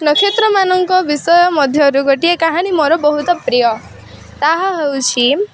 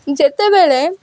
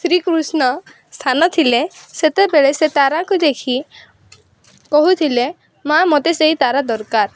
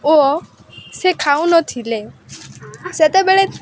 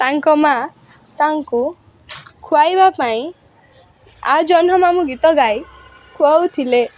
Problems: constant background noise